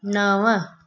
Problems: none marked